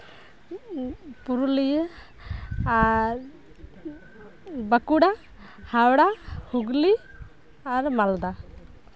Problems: none marked